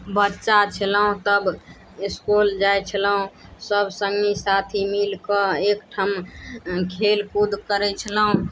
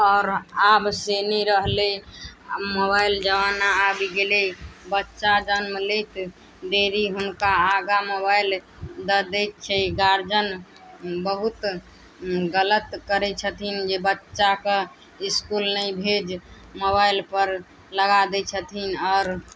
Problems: none marked